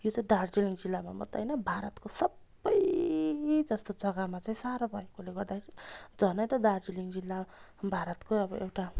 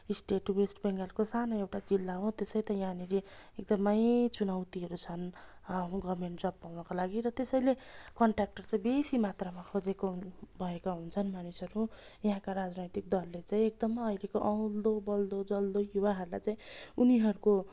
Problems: constant background noise